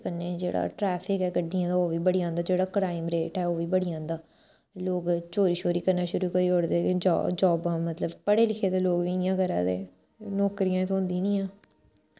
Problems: none marked